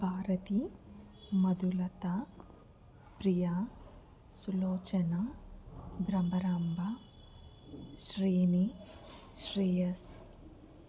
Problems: background sounds at intervals, low volume